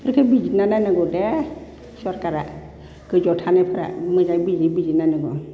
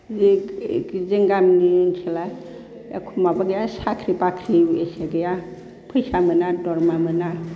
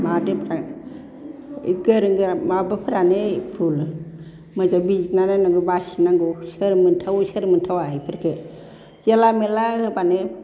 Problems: constant background noise